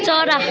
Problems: constant background noise